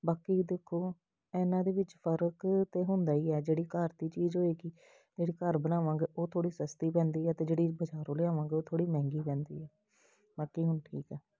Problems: none marked